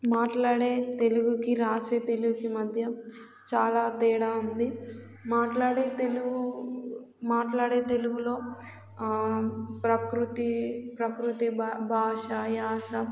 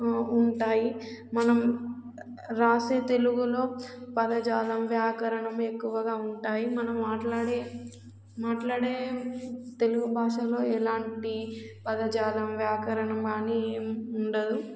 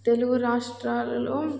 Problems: constant background noise